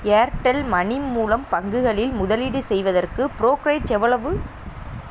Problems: constant background noise